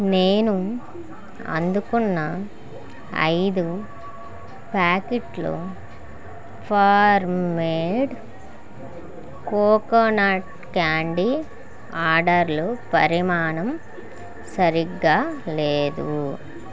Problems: continuous background conversations